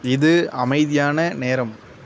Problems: constant background noise